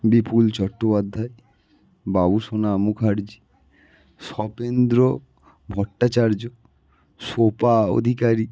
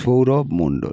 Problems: none marked